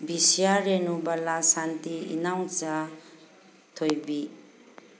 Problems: background sounds at intervals